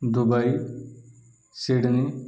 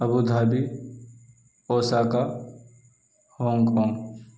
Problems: none marked